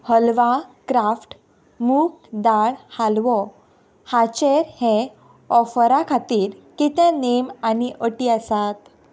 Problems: background sounds at intervals